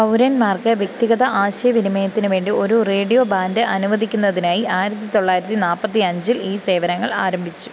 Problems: none marked